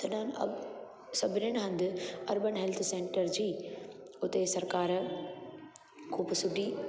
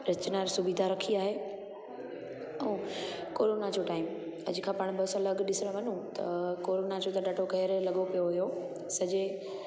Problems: constant background noise, echo